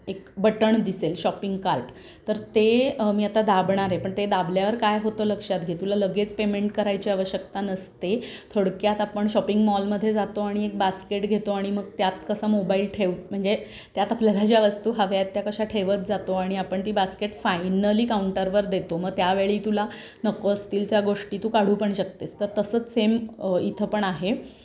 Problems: constant background noise